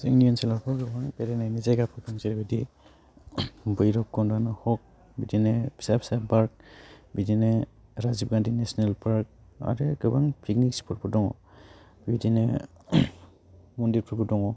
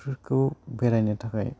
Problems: none marked